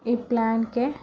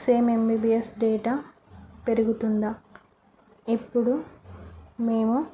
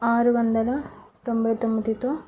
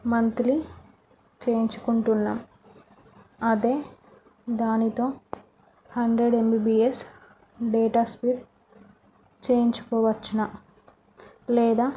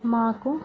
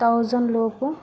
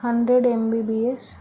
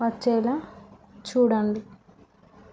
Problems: none marked